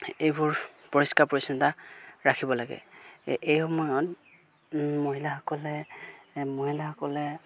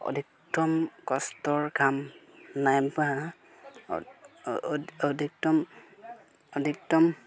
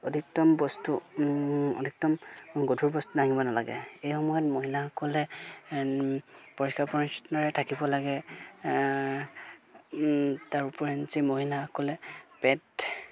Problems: background sounds at intervals